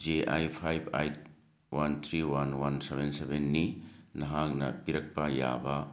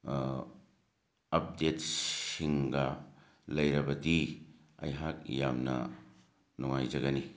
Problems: background sounds at intervals